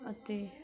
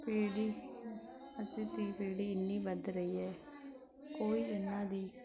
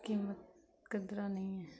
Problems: background sounds at intervals